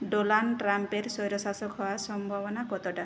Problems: low volume